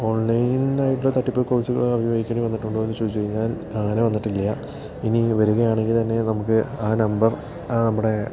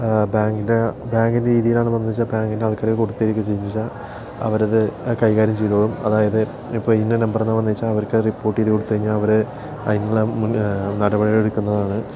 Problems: none marked